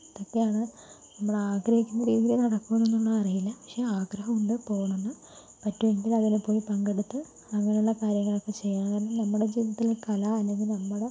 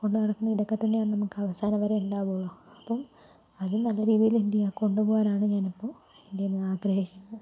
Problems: low volume